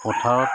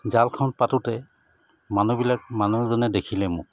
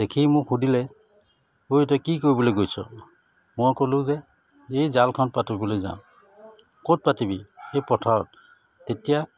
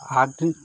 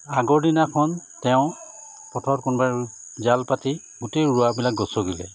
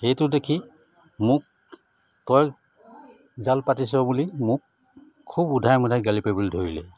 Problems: constant background noise